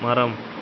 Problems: background sounds at intervals